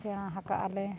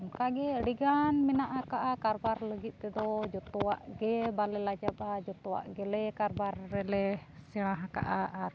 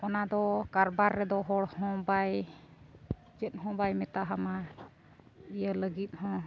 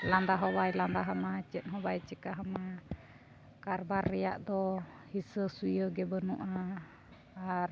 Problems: constant background noise